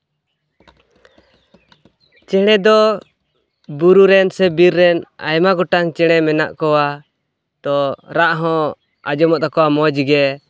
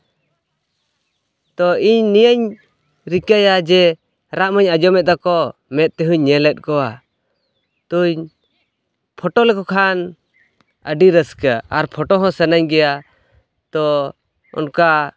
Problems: background sounds at intervals